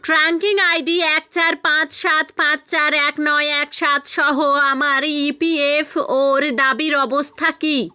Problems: none marked